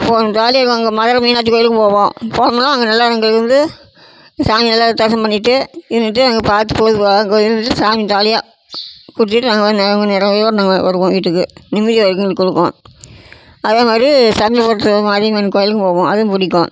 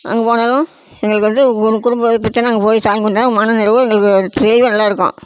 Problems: constant background noise